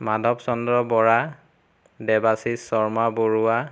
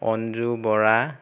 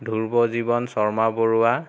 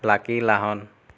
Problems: constant background noise